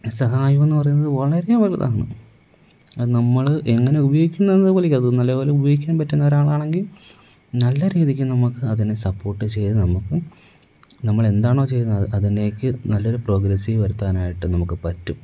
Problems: none marked